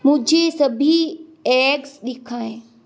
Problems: constant background noise